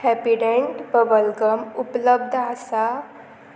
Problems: constant background noise